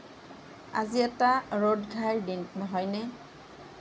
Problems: none marked